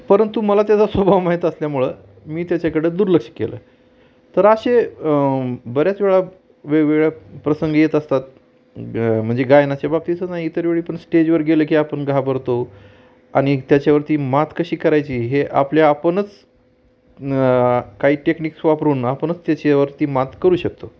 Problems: constant background noise, background conversations at intervals